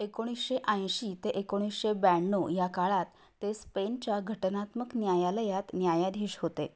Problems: none marked